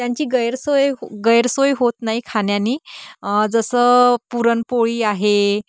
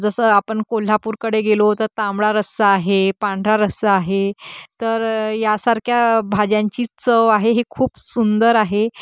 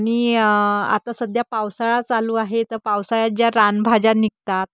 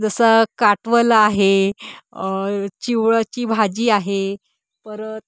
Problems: constant background noise